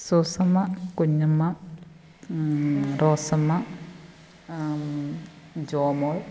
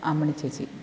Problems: constant background noise, low volume